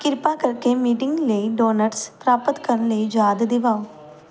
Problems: background sounds at intervals, background conversations at intervals